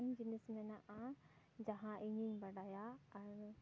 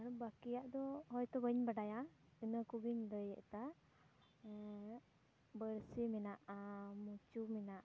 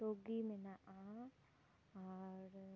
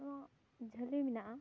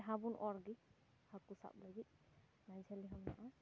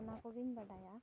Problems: background sounds at intervals, low volume